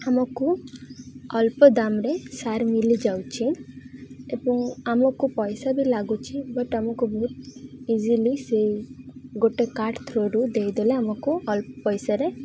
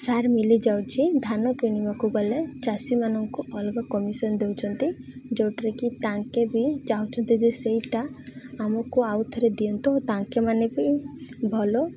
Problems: constant background noise, continuous background conversations